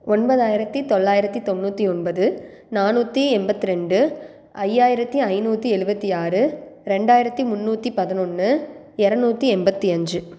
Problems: none marked